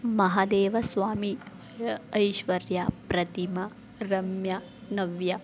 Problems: none marked